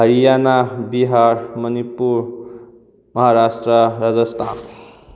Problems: none marked